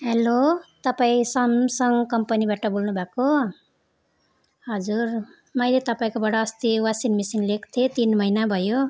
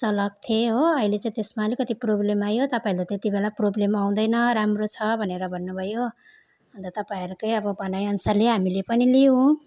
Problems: constant background noise